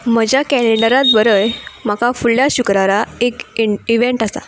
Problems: background sounds at intervals